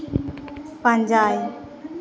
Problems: echo